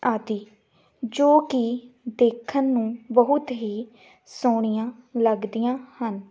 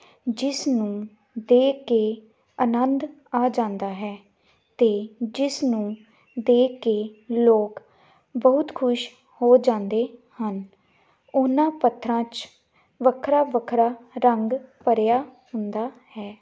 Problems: none marked